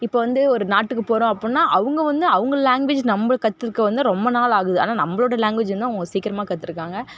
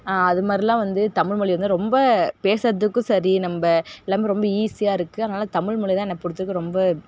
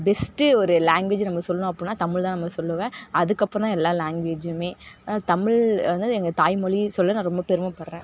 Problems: background sounds at intervals, background conversations at intervals